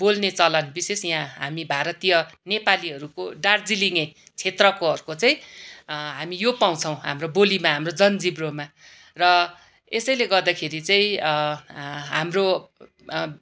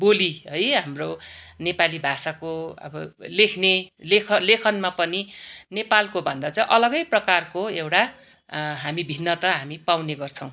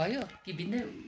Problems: none marked